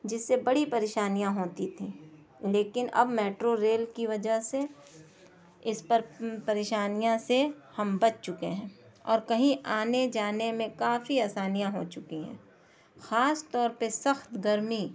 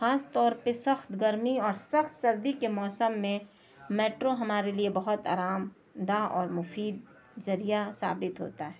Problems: low volume